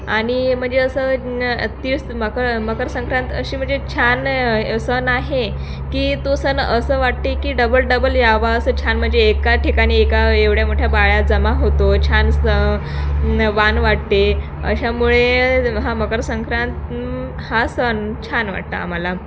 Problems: constant background noise, background conversations at intervals, echo